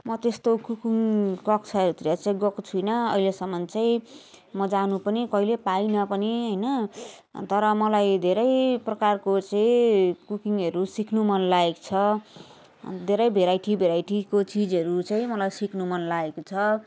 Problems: continuous background conversations